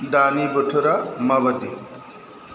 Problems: constant background noise